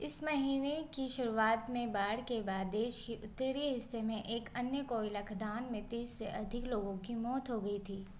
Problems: constant background noise